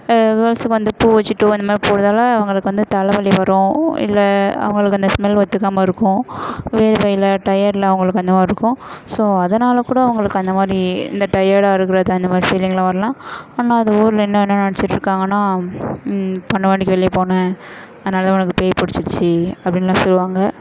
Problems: none marked